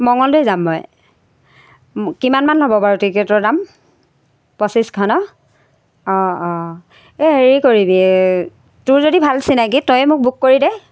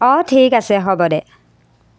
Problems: constant background noise